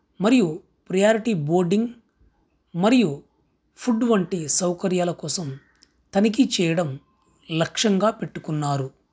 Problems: none marked